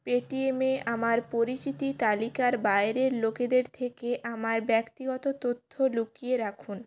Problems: none marked